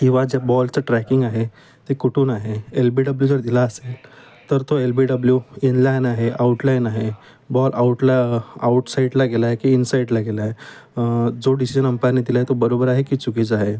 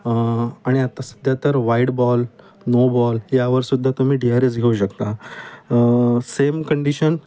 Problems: constant background noise, background conversations at intervals